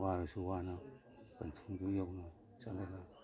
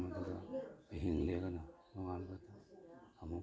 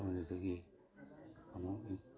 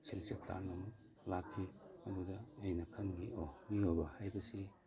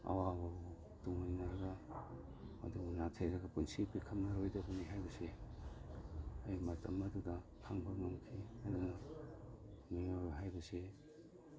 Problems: background sounds at intervals, background conversations at intervals